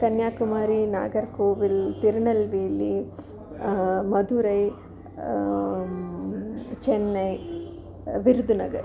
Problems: continuous background conversations